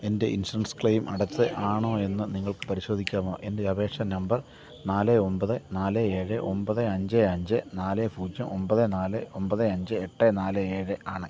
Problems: constant background noise, low volume